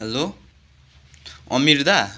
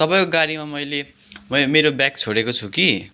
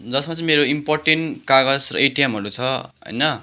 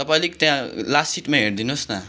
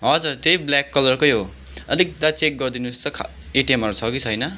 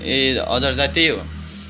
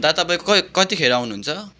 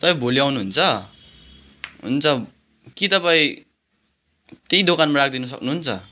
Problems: background sounds at intervals